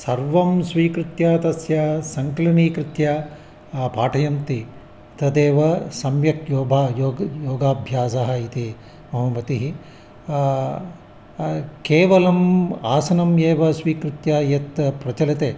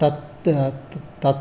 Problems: constant background noise